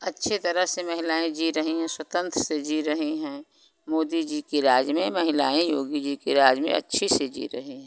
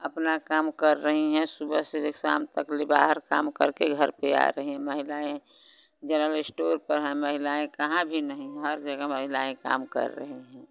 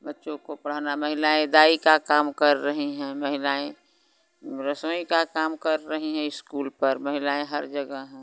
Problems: constant background noise